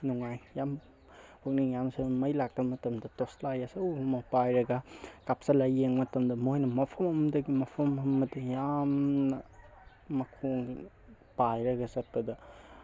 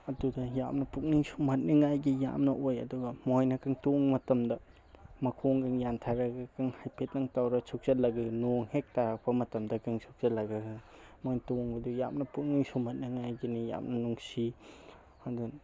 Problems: none marked